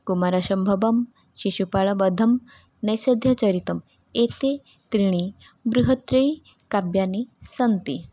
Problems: none marked